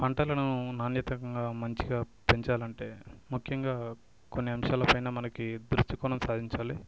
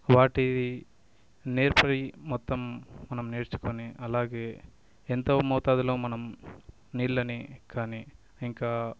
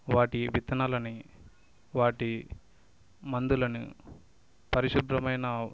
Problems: background sounds at intervals